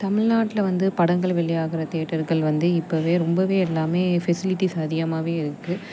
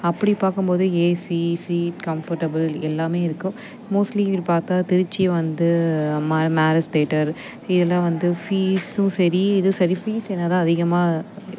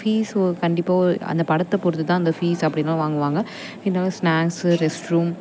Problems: constant background noise